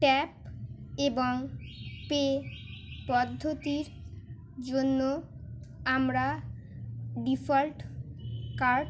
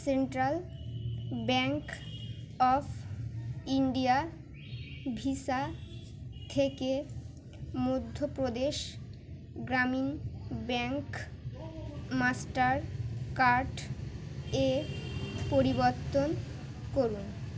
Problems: background sounds at intervals